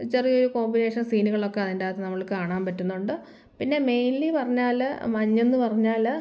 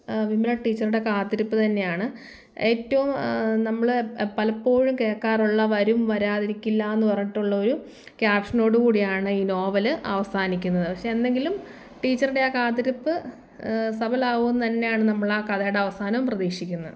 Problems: none marked